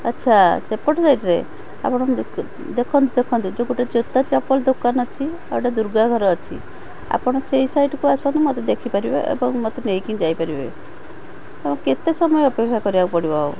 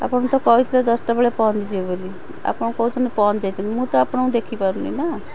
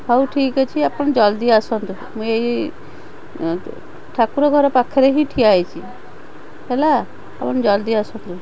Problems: constant background noise, background conversations at intervals